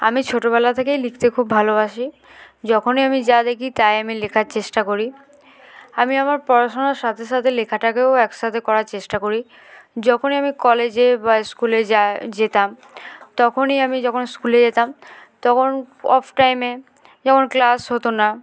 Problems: none marked